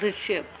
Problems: low volume